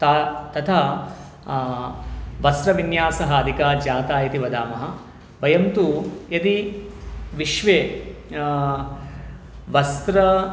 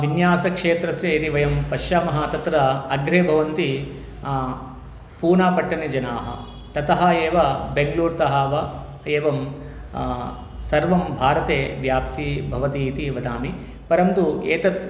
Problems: none marked